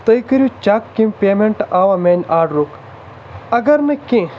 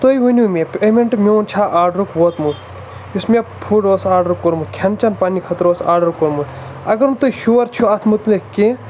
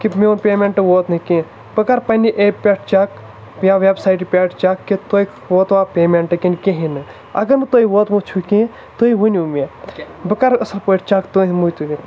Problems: constant background noise